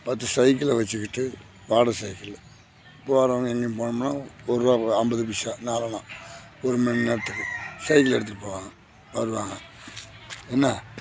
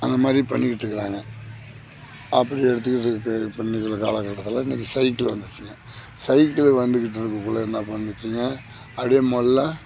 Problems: background sounds at intervals